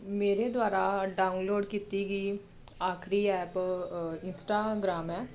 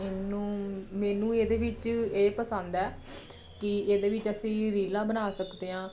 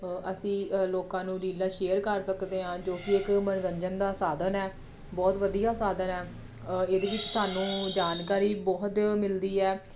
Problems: background sounds at intervals